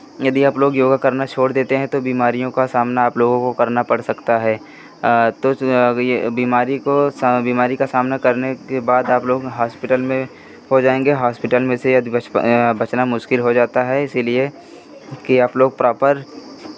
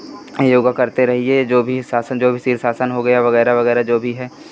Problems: none marked